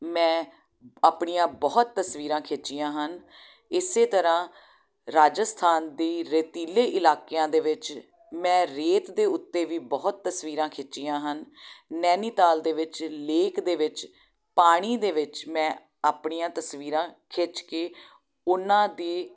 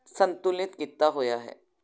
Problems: none marked